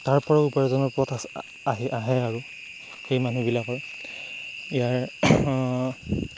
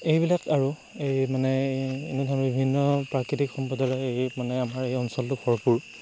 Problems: constant background noise